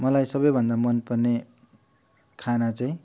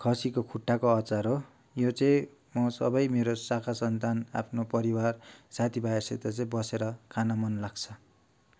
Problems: none marked